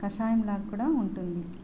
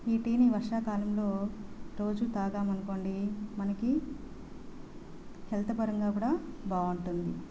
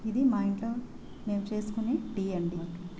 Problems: constant background noise, background conversations at intervals